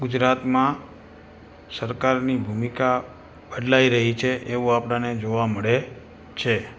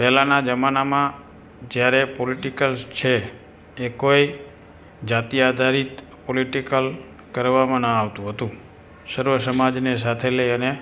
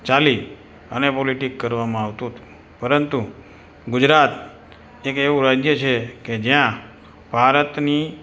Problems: constant background noise